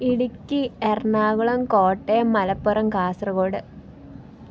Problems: none marked